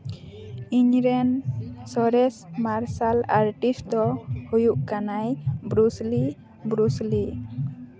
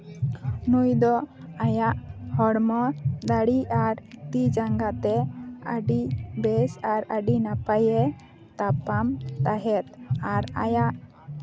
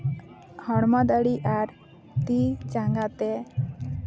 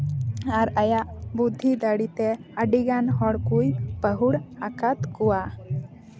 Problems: constant background noise, background conversations at intervals